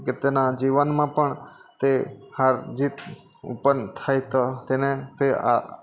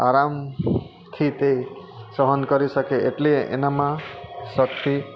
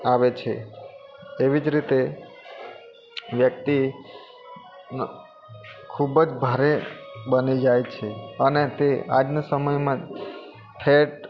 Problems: constant background noise